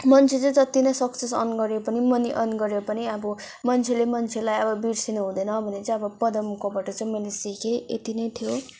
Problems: none marked